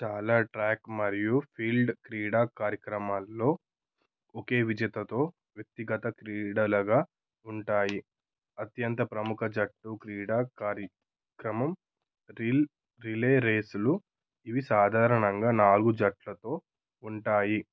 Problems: none marked